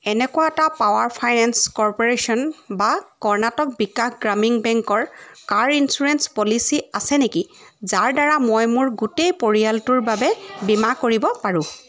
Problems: constant background noise